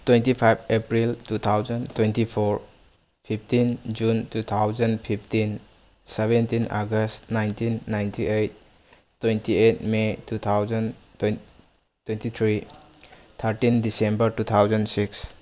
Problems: none marked